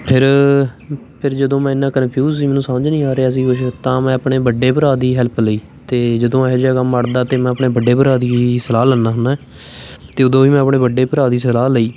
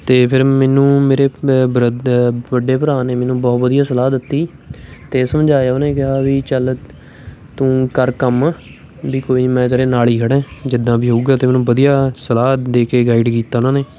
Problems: constant background noise, continuous background conversations